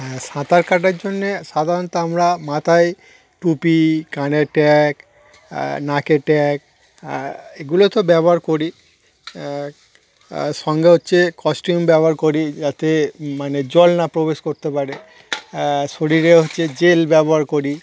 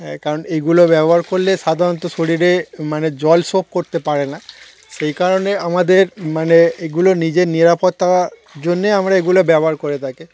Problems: constant background noise